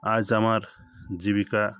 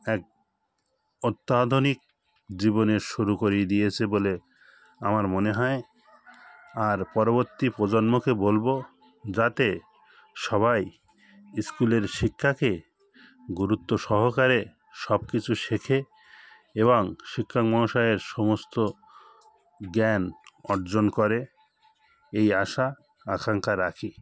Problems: constant background noise, background conversations at intervals